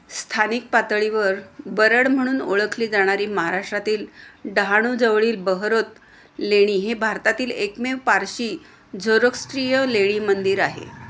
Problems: constant background noise